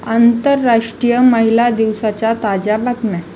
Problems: constant background noise, continuous background conversations